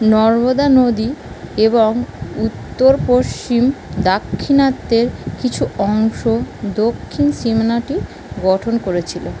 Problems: constant background noise